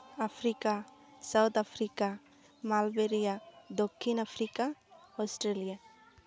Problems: background sounds at intervals, background conversations at intervals